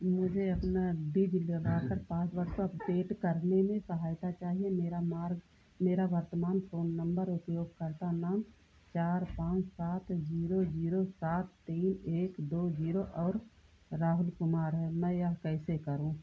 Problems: none marked